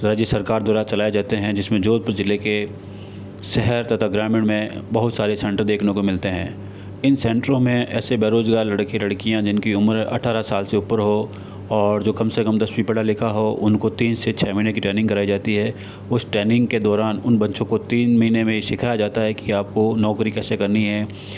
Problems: constant background noise